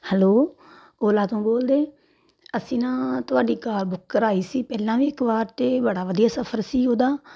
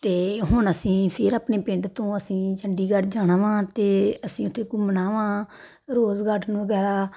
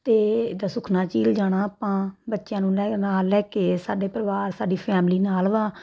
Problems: background sounds at intervals